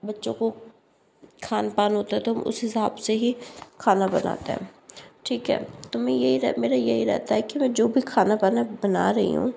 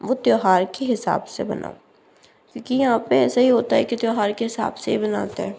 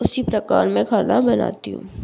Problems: none marked